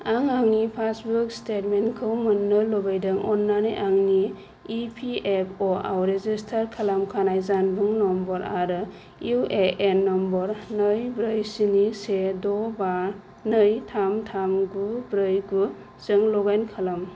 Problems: low volume